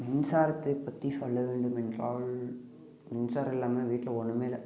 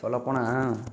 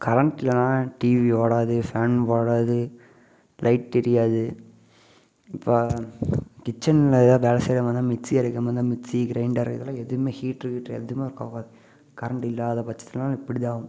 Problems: constant background noise